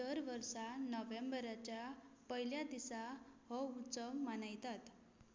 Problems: low volume